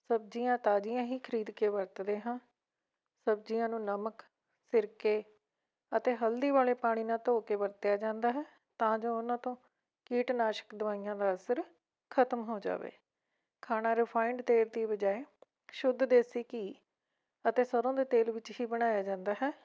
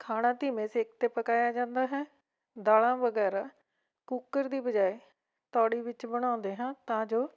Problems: background sounds at intervals